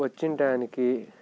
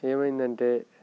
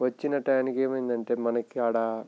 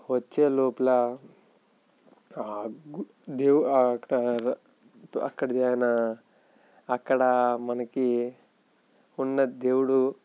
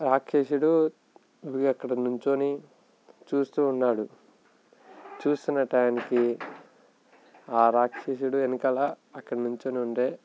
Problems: background sounds at intervals